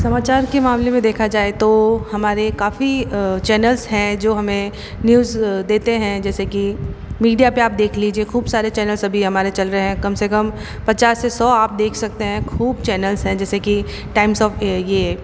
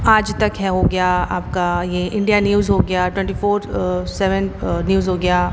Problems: constant background noise